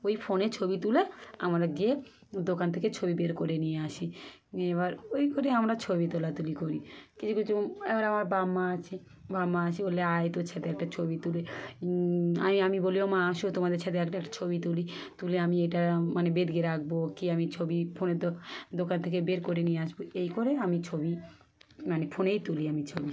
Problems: none marked